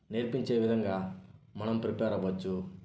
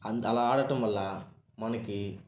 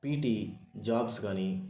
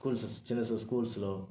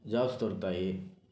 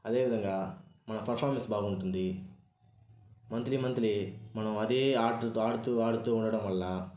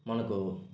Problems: background sounds at intervals